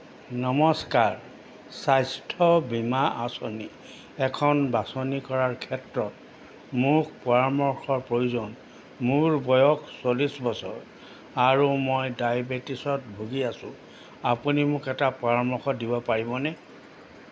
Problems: constant background noise